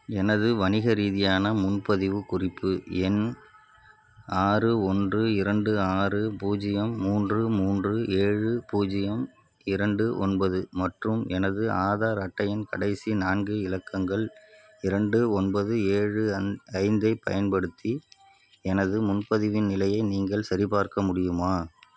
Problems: constant background noise